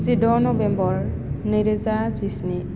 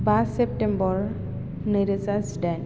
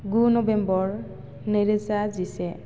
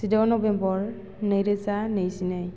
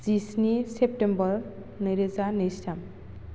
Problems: none marked